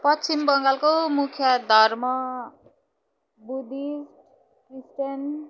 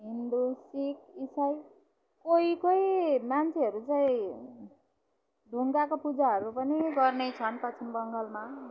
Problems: none marked